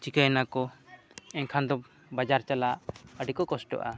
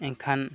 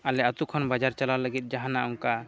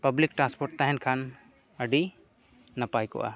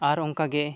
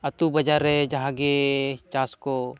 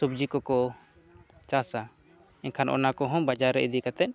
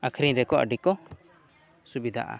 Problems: low volume